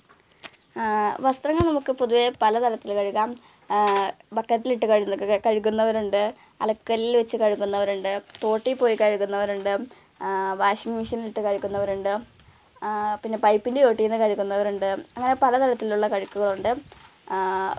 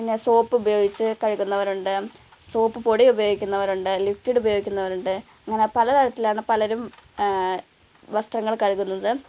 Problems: background sounds at intervals, low volume